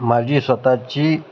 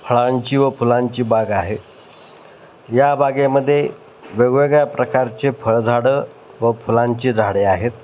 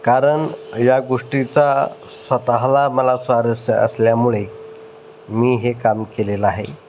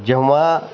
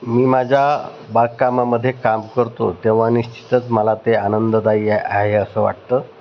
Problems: none marked